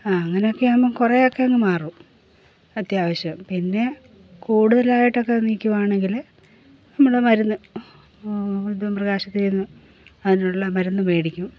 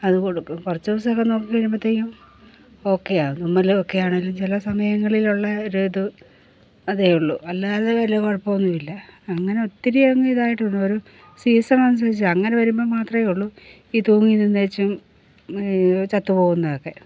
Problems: background sounds at intervals